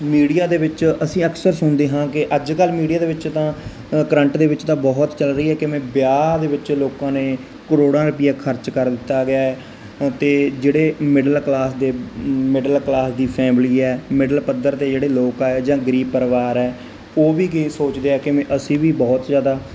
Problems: constant background noise